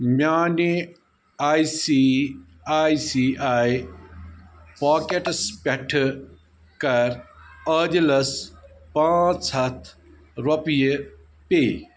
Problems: none marked